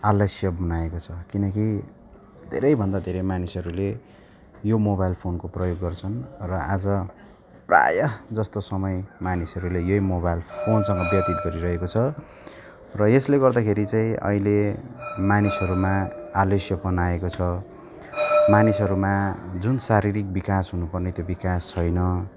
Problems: none marked